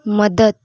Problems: none marked